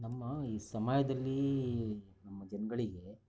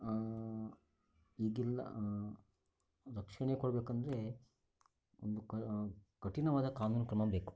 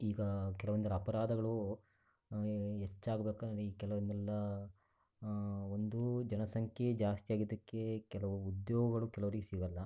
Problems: none marked